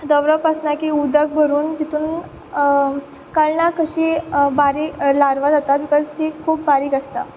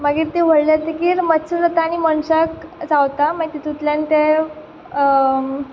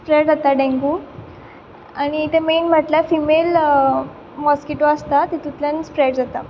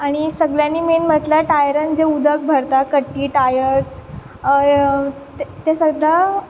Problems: background sounds at intervals